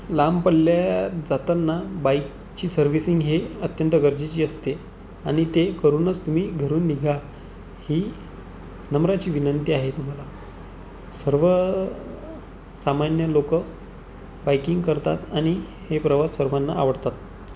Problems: none marked